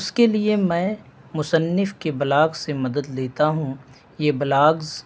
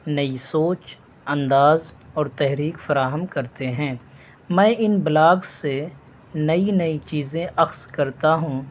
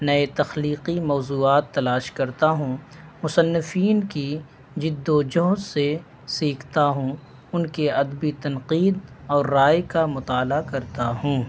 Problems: constant background noise